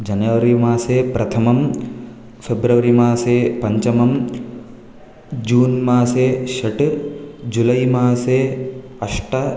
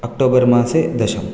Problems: none marked